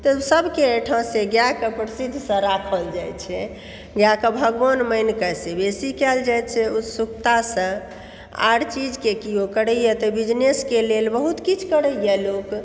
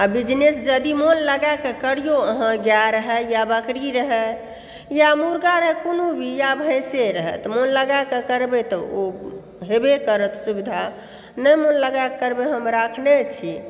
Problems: background sounds at intervals